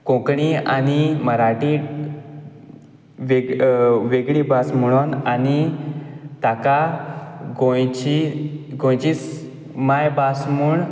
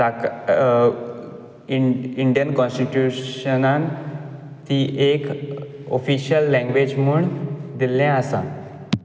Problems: background sounds at intervals